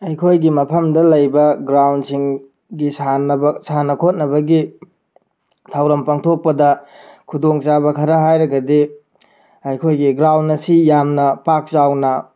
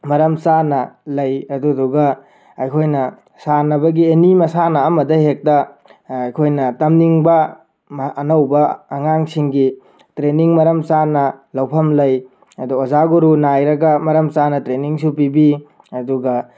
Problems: background sounds at intervals